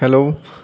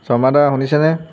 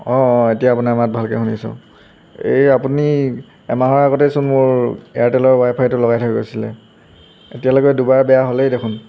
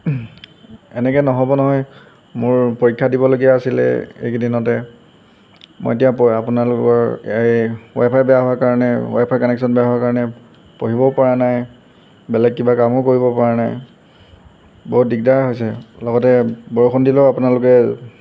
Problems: background sounds at intervals